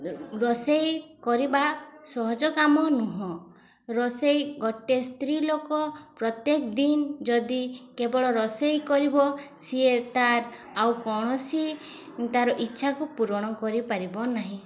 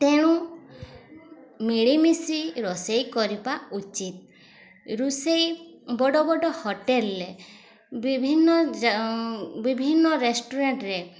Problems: constant background noise, continuous background conversations